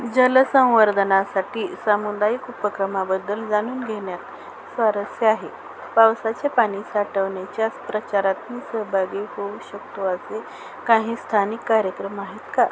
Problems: constant background noise